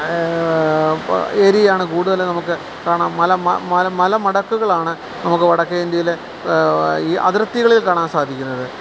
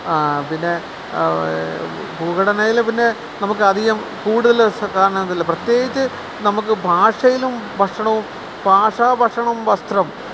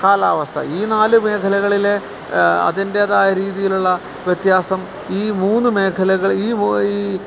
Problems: constant background noise